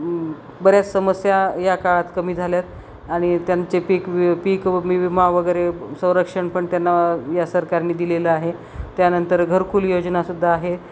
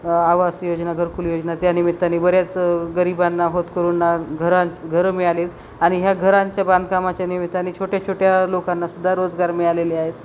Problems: none marked